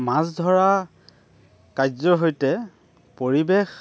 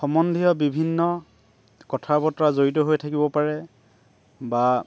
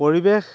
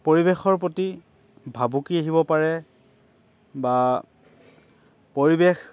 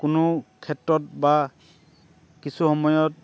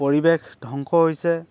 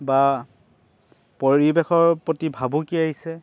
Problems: none marked